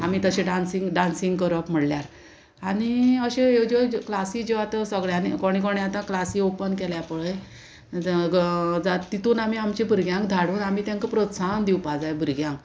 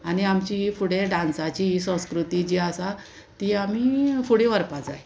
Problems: constant background noise